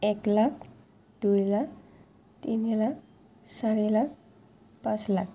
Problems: low volume